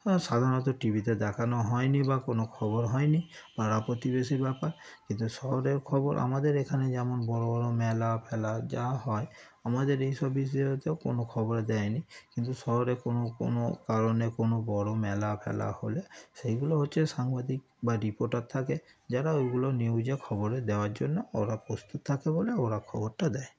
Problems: none marked